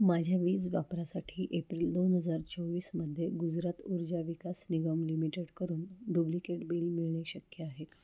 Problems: constant background noise